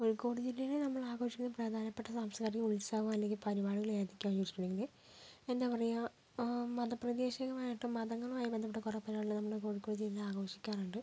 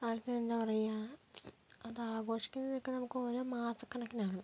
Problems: low volume